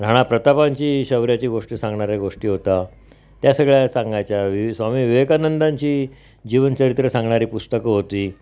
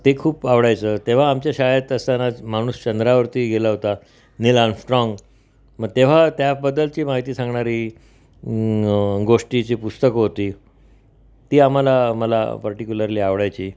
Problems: background sounds at intervals